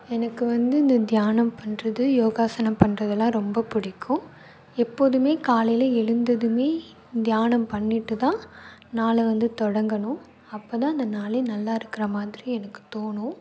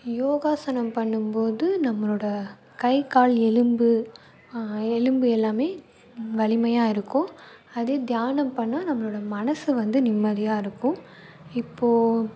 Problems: background sounds at intervals